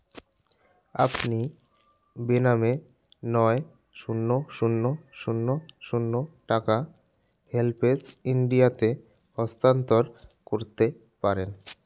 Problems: background sounds at intervals